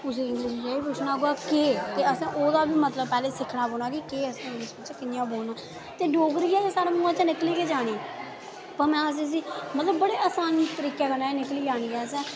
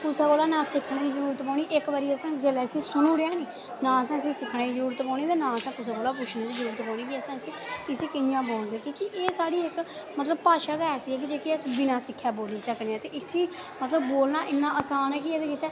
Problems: constant background noise